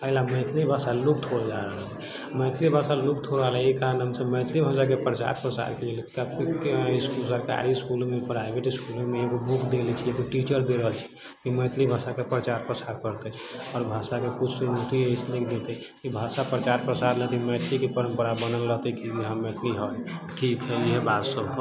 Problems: low volume